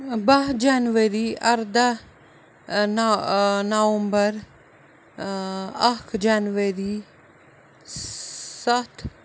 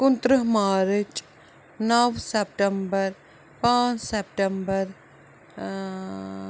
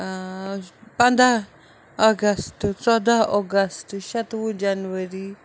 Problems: background sounds at intervals